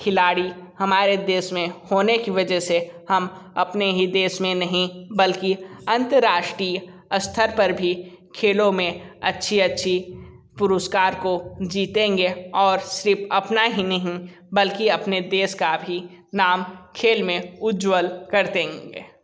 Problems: constant background noise